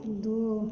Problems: echo